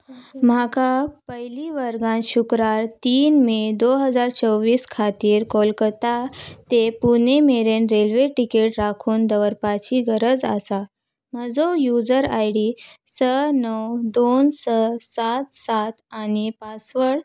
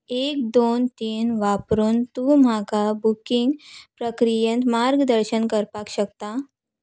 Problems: background sounds at intervals